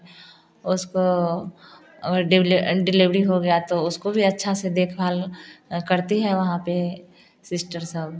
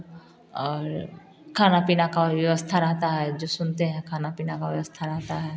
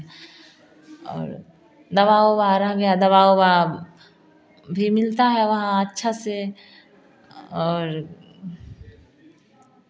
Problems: background conversations at intervals